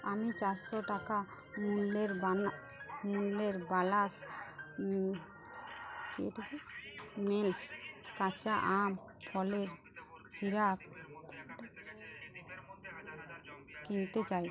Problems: constant background noise, continuous background conversations